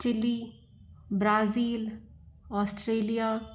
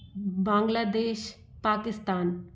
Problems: none marked